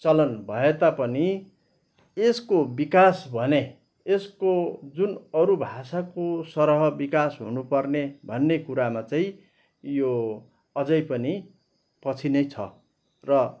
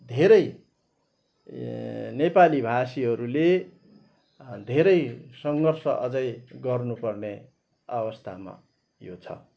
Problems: background sounds at intervals